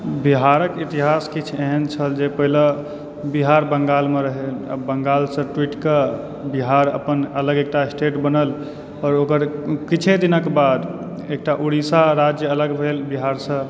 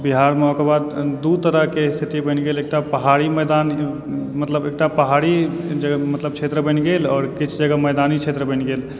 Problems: background sounds at intervals, background conversations at intervals